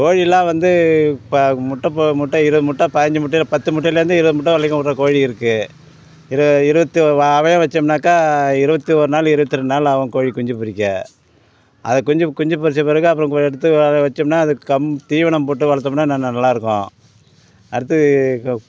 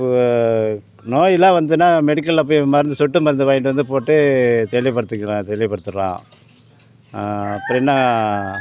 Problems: constant background noise, background conversations at intervals